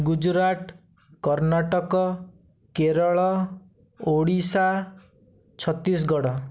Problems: none marked